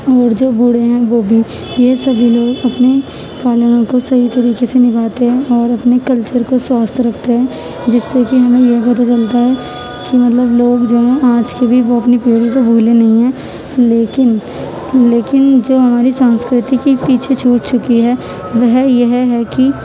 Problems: constant background noise, background conversations at intervals